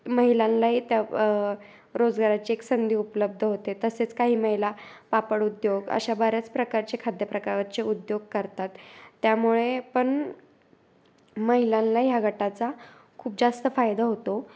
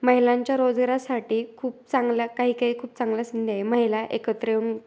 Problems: background sounds at intervals